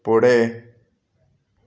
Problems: none marked